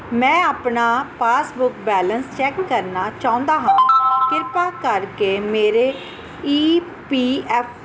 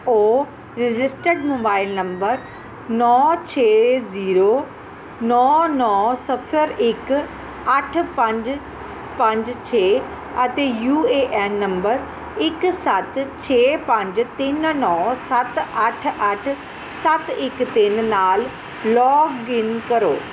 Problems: constant background noise